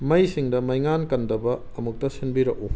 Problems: background sounds at intervals